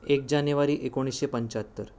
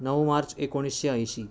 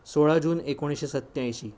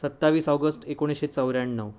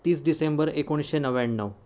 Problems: none marked